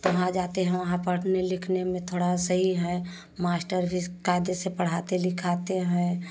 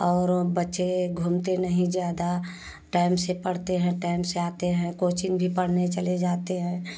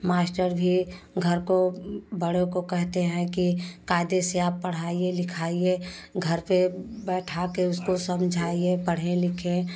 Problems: constant background noise